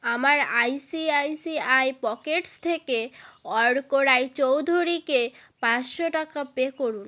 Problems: constant background noise